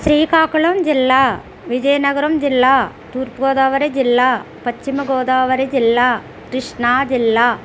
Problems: constant background noise